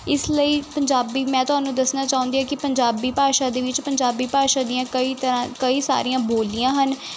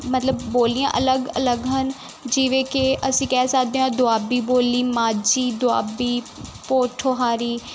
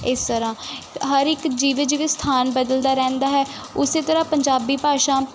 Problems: constant background noise